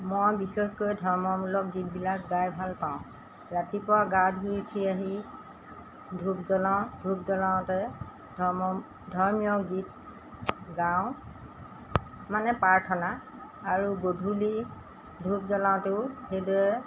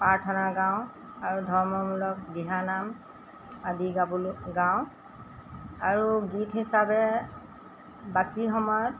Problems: constant background noise